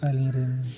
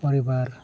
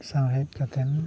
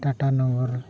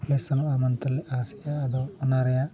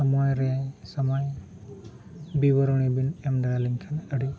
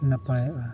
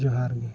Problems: background sounds at intervals